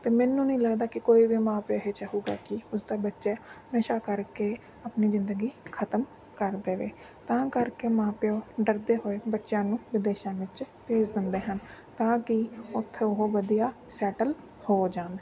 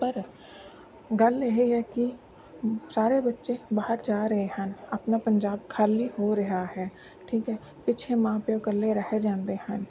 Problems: constant background noise